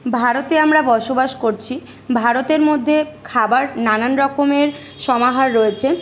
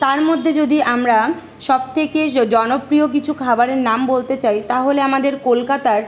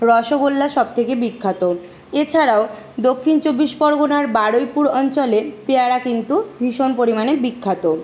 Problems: constant background noise